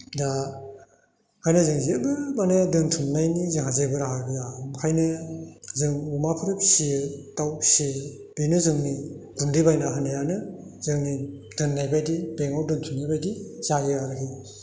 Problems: constant background noise